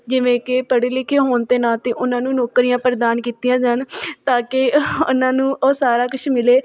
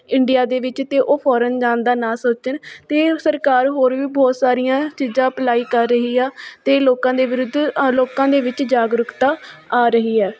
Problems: background sounds at intervals